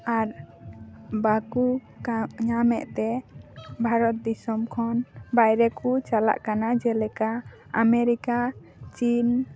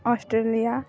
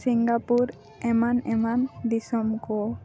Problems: none marked